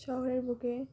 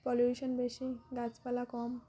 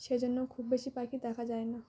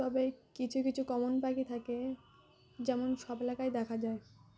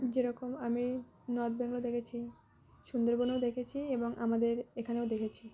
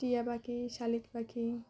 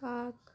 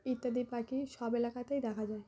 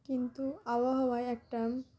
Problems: none marked